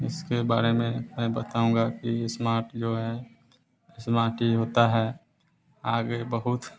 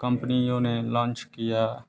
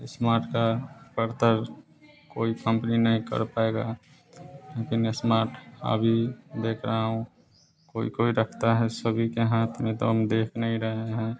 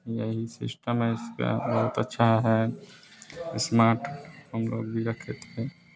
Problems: none marked